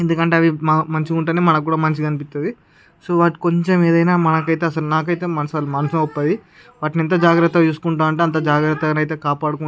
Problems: none marked